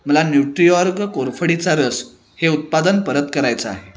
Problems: constant background noise, background conversations at intervals